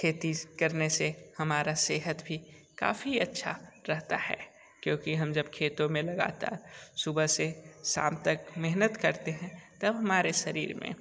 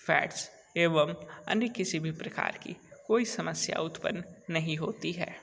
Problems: none marked